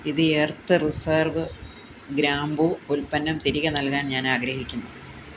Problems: constant background noise